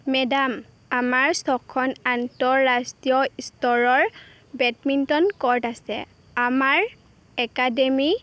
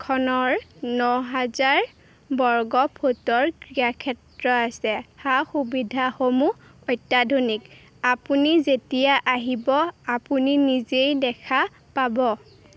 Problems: constant background noise